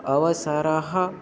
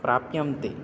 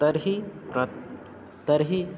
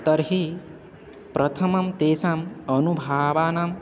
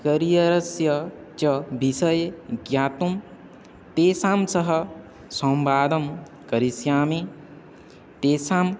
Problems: none marked